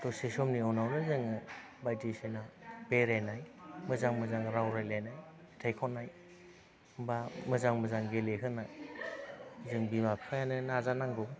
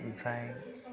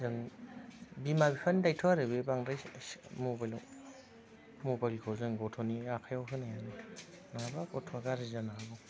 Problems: constant background noise